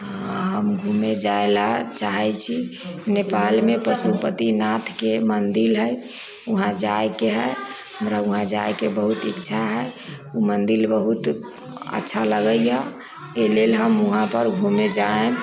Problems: none marked